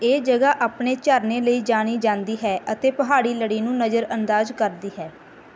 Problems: background sounds at intervals